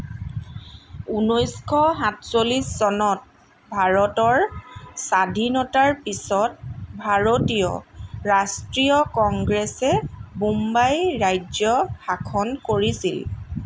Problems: constant background noise